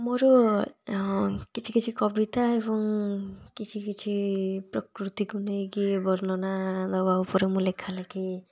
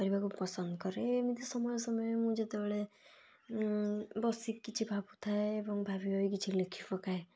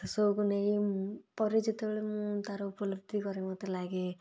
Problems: none marked